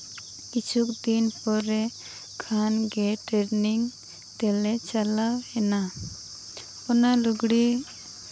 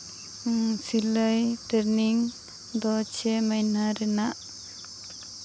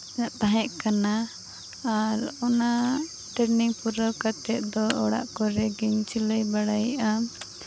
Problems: constant background noise